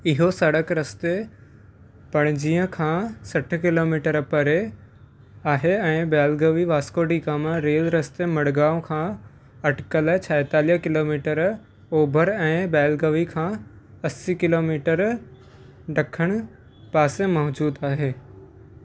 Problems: constant background noise